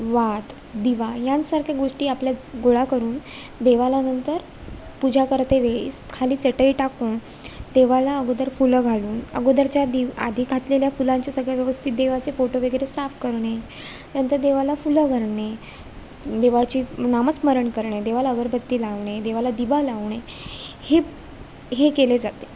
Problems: constant background noise